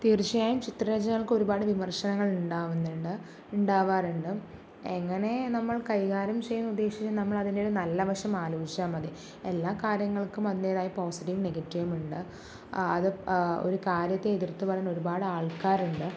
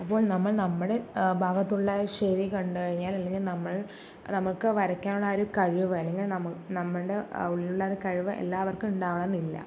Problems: background sounds at intervals, low volume